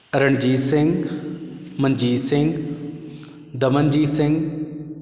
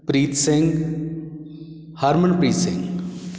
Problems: background sounds at intervals